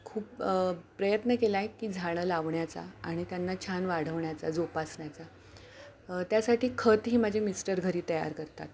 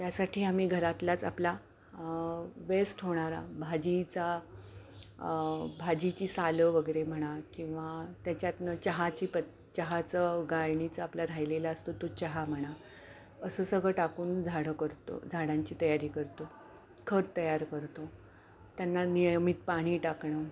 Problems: none marked